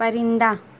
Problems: constant background noise